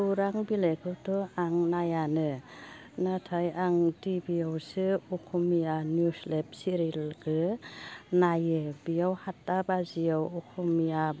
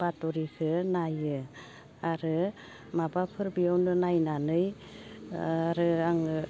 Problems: constant background noise